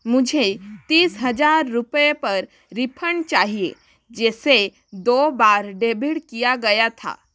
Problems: none marked